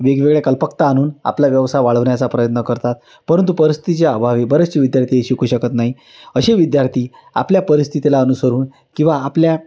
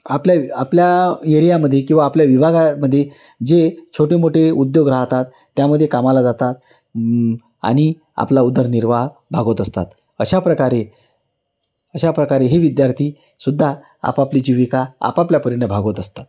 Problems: background sounds at intervals